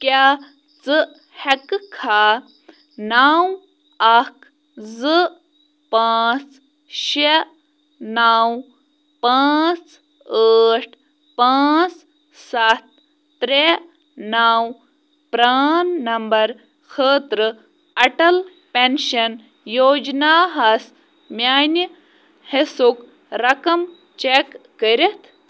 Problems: none marked